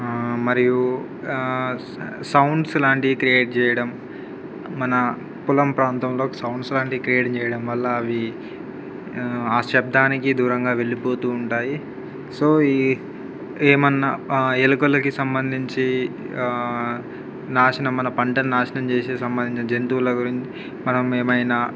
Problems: background sounds at intervals